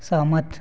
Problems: none marked